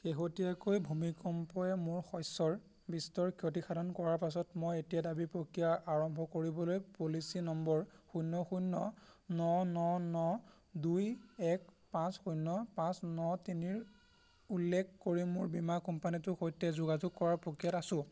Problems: constant background noise